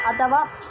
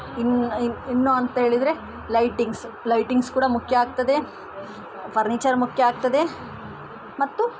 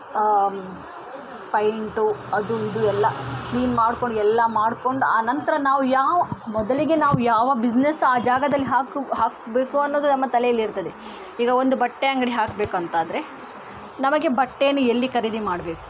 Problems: constant background noise